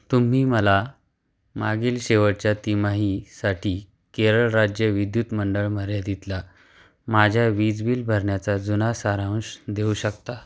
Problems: none marked